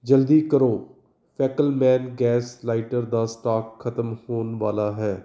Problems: none marked